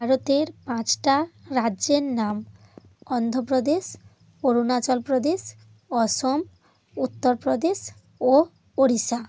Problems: none marked